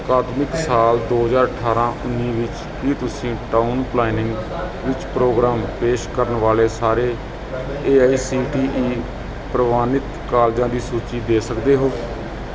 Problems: continuous background conversations